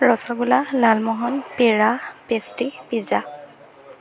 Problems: constant background noise